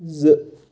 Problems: none marked